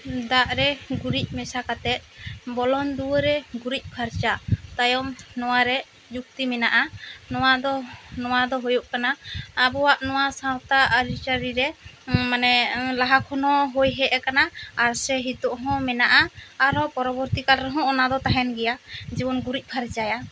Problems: constant background noise